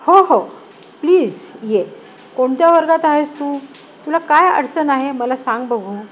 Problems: none marked